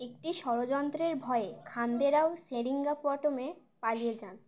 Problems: background conversations at intervals